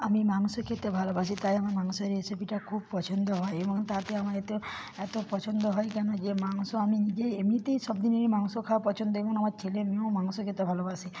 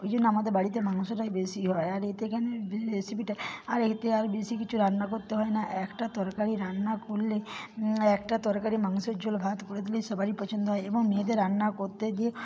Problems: constant background noise